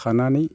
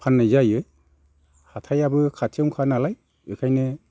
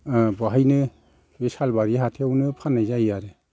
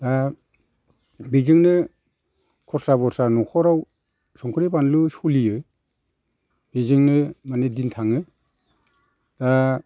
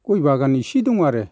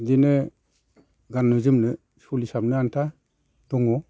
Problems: constant background noise